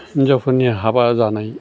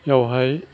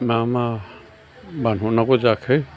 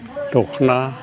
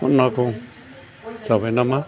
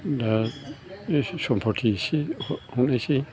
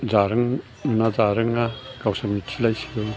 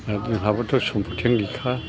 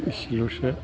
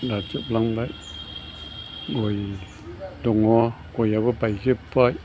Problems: constant background noise